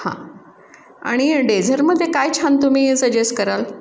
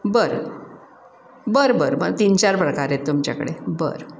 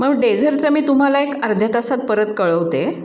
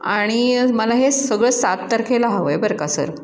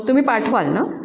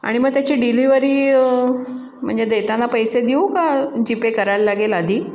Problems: constant background noise